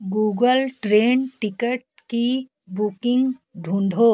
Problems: background sounds at intervals, background conversations at intervals